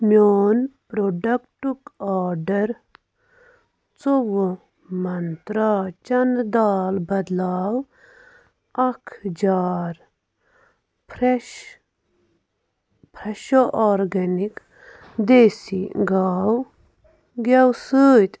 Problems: constant background noise